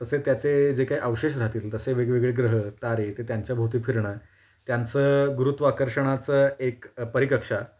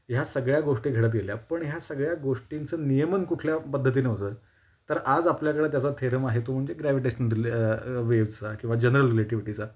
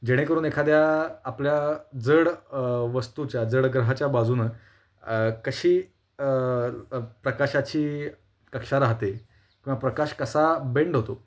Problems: constant background noise